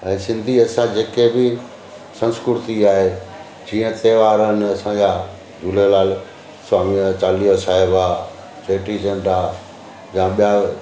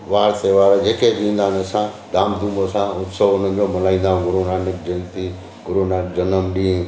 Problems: constant background noise, echo